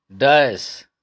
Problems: none marked